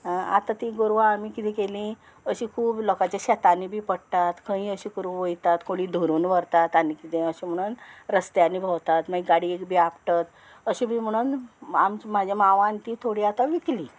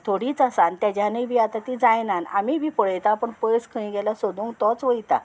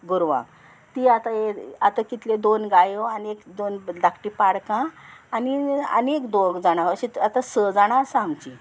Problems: constant background noise